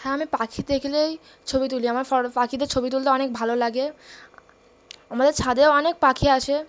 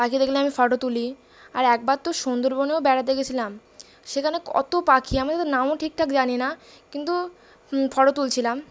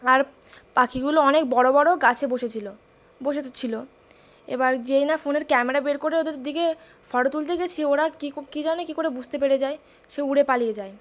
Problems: constant background noise